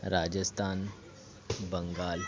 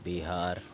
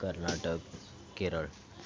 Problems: continuous background conversations